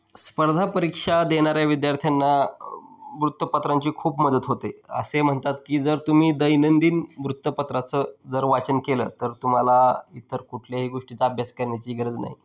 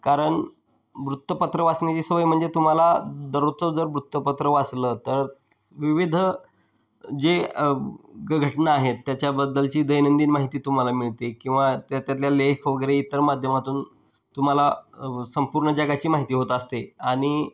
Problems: background sounds at intervals